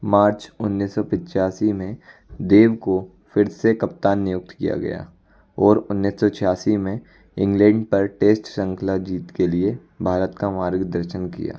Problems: constant background noise